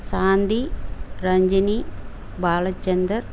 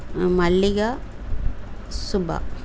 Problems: none marked